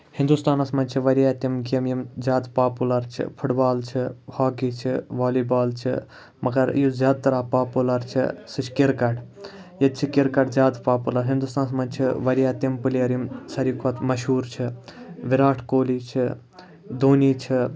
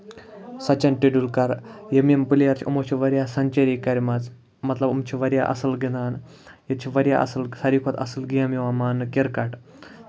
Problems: none marked